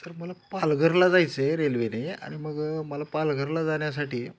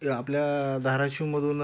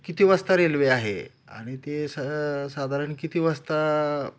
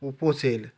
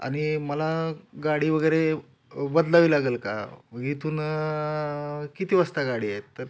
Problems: none marked